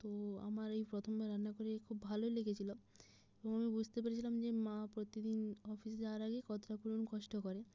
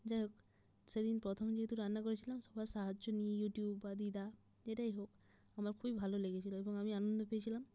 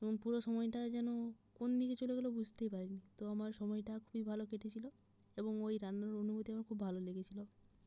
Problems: low volume